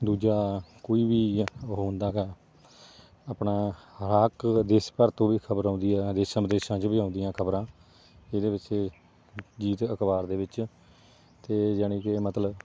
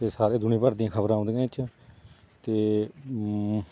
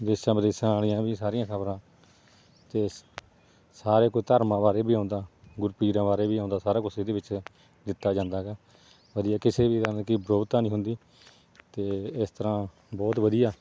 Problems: background sounds at intervals